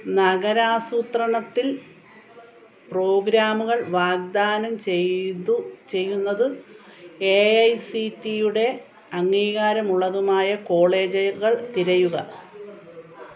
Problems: background conversations at intervals